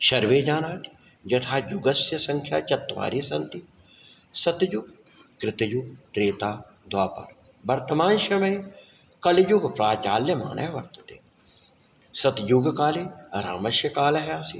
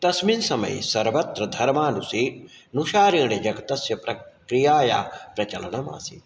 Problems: none marked